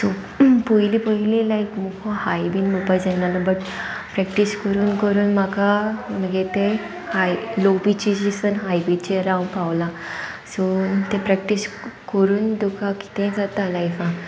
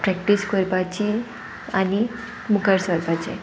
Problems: constant background noise